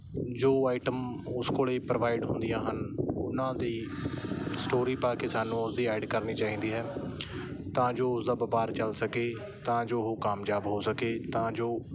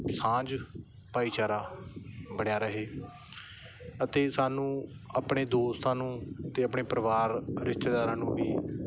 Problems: background sounds at intervals